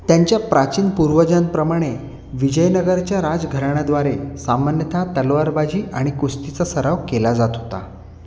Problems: constant background noise, continuous background conversations